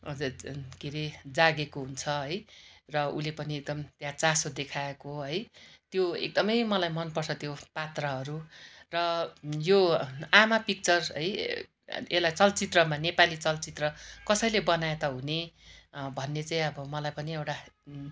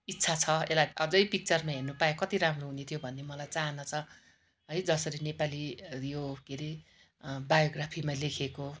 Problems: none marked